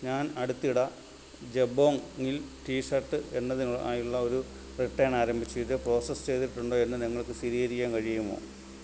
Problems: constant background noise